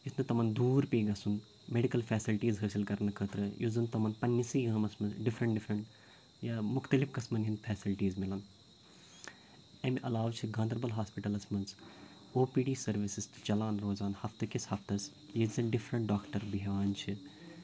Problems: background sounds at intervals, low volume